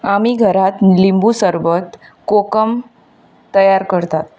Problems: constant background noise